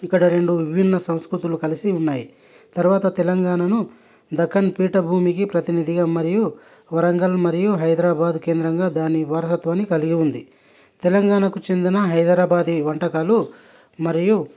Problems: none marked